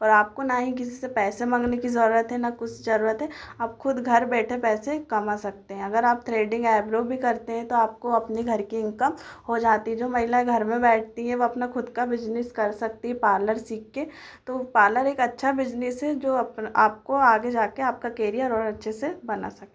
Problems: echo